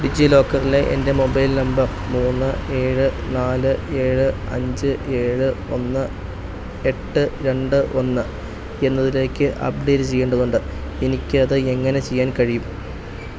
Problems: none marked